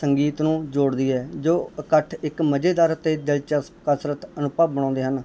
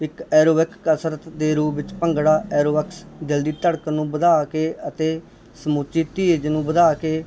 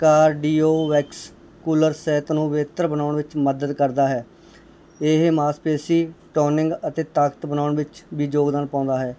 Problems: background conversations at intervals